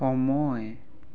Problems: none marked